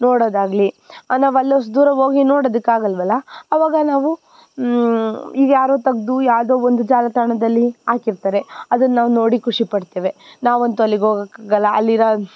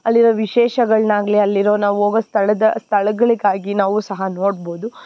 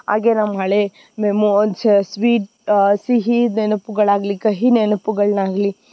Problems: none marked